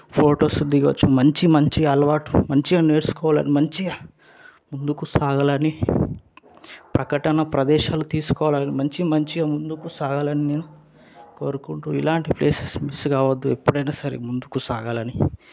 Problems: none marked